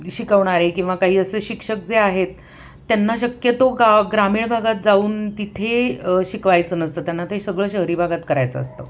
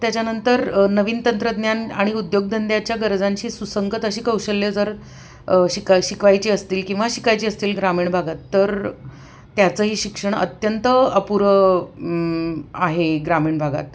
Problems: none marked